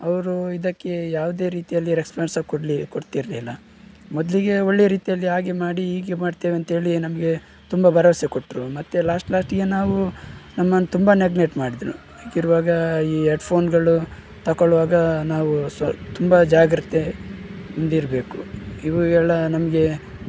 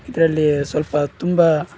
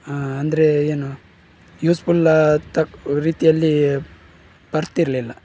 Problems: background sounds at intervals